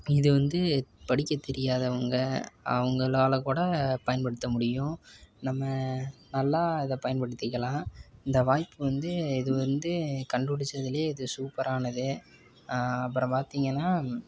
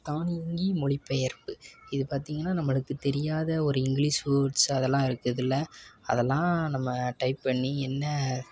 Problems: background conversations at intervals